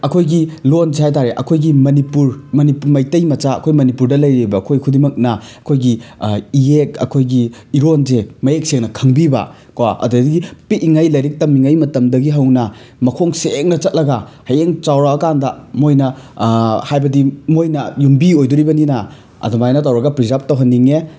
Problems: none marked